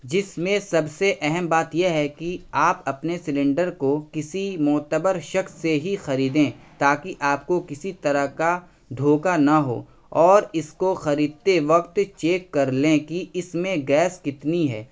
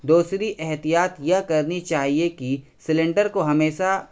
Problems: none marked